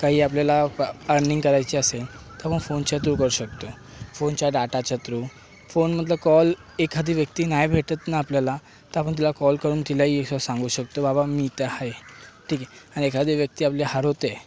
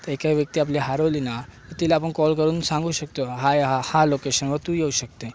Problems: background sounds at intervals